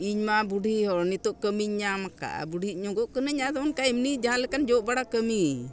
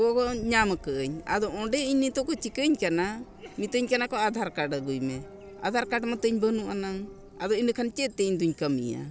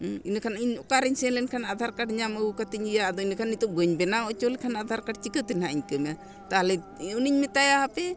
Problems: constant background noise